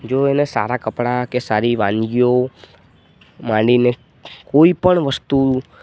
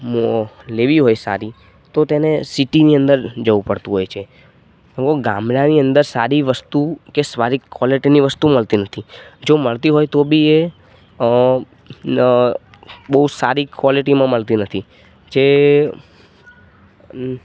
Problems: none marked